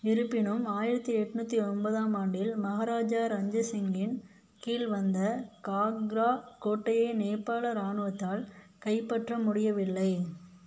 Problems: none marked